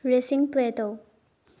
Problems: low volume